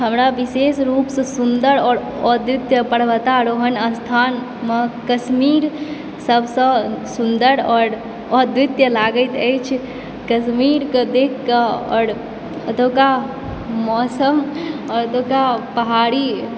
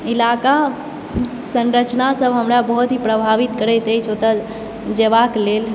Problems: background sounds at intervals